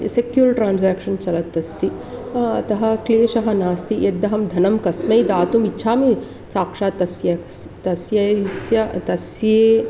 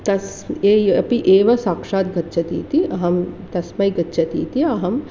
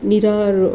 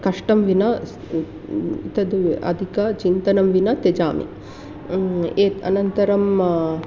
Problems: constant background noise